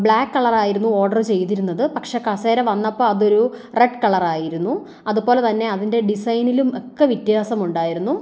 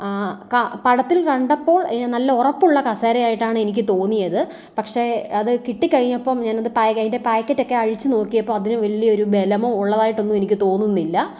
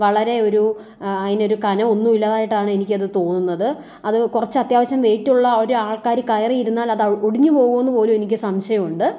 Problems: none marked